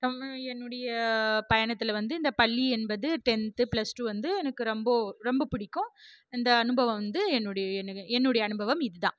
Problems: none marked